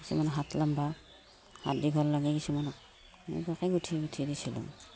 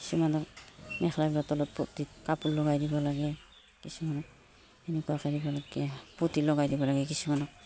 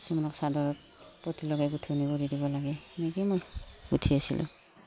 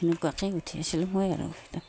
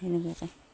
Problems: background sounds at intervals